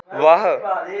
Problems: background sounds at intervals, echo